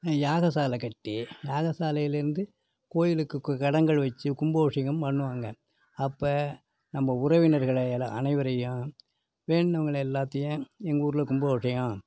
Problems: background sounds at intervals